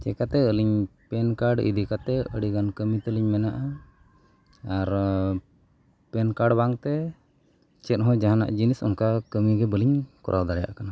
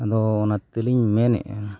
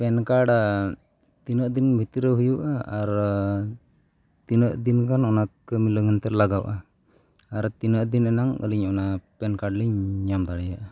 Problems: none marked